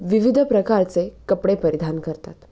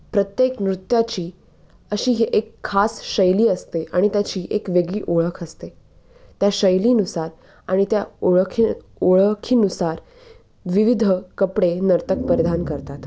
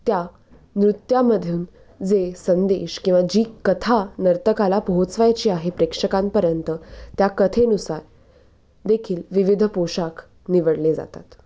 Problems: none marked